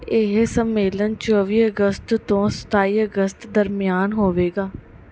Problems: none marked